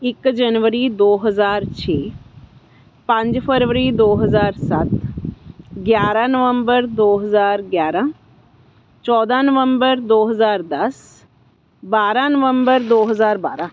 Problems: constant background noise